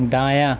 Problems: constant background noise